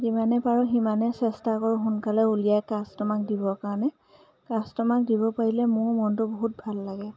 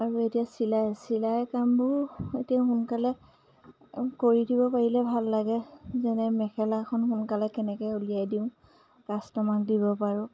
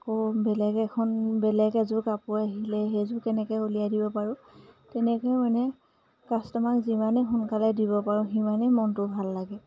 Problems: background sounds at intervals